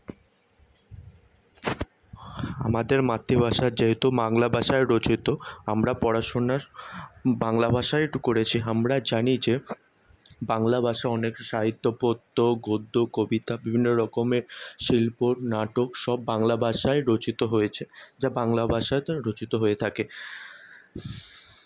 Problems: none marked